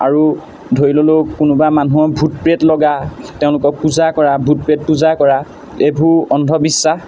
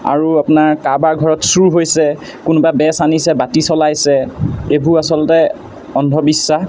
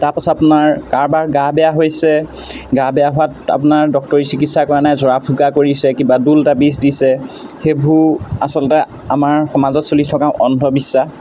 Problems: constant background noise